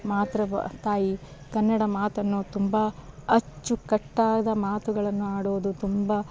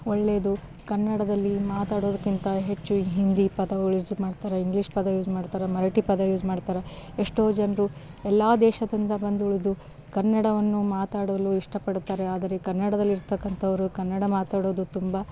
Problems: background sounds at intervals